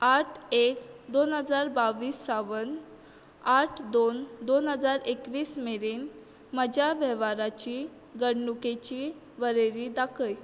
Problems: none marked